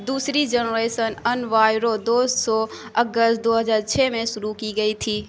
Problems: constant background noise